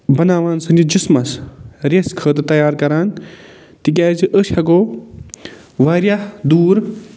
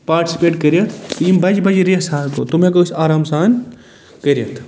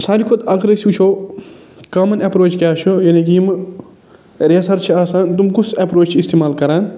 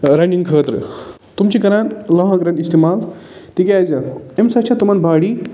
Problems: none marked